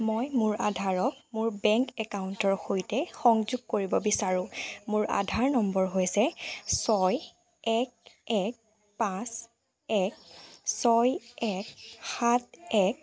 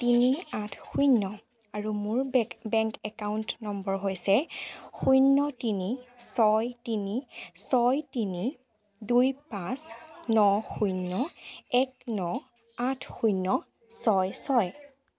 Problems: background sounds at intervals